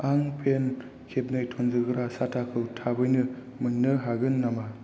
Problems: low volume